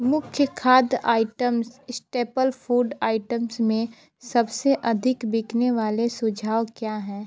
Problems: constant background noise, continuous background conversations